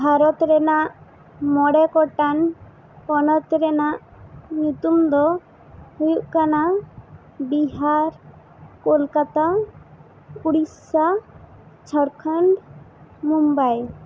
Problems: constant background noise